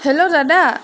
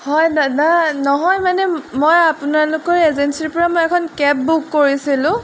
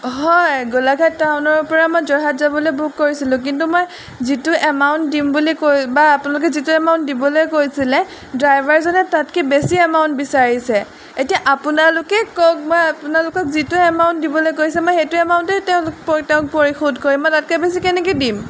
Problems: background sounds at intervals